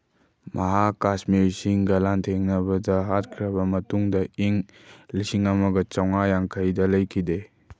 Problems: none marked